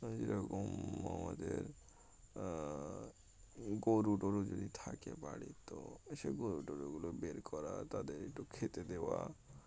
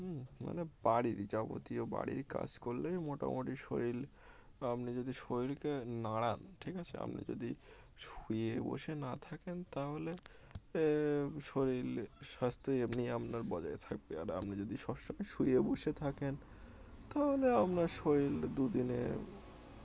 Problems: none marked